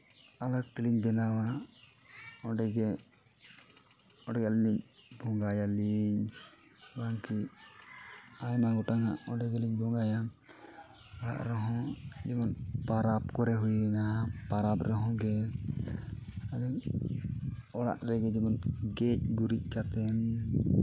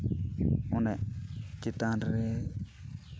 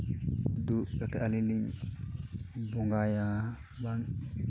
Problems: constant background noise